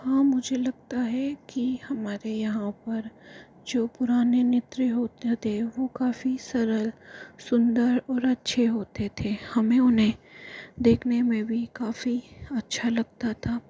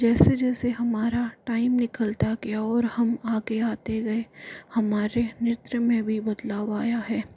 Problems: constant background noise, low volume